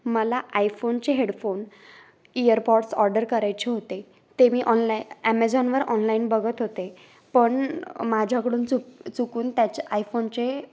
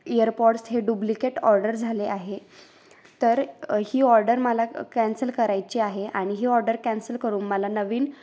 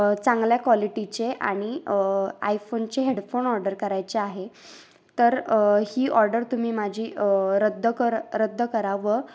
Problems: background sounds at intervals